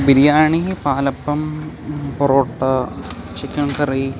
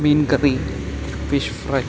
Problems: background sounds at intervals